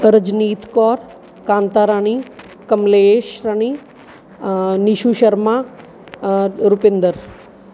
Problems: background sounds at intervals